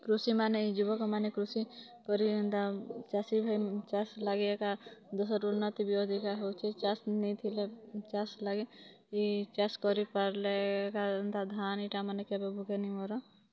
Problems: constant background noise, continuous background conversations